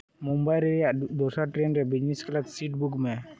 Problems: background sounds at intervals